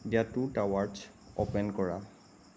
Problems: constant background noise, low volume